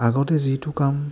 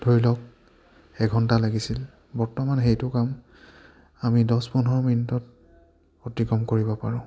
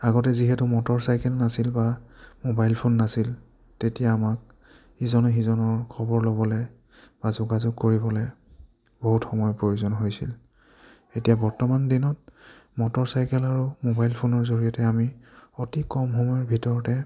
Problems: none marked